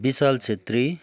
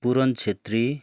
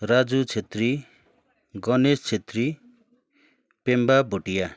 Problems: continuous background conversations